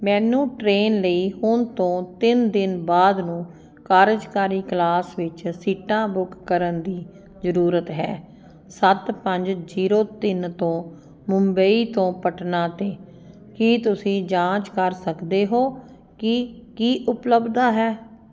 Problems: none marked